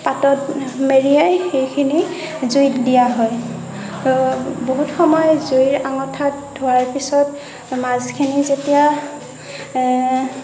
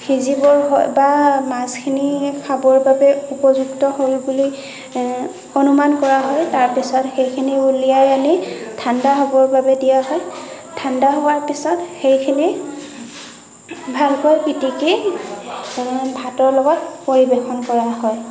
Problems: continuous background conversations